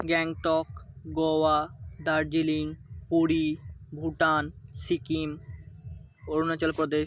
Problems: background sounds at intervals